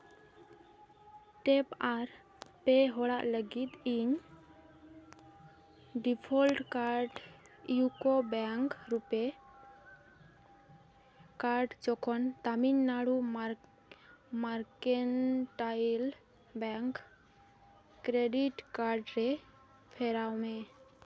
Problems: constant background noise, continuous background conversations